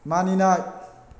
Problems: constant background noise